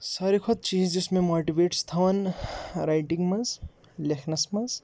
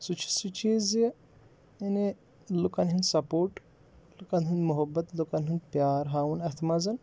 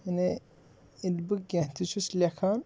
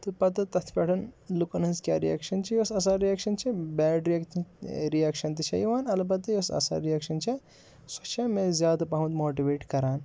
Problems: background sounds at intervals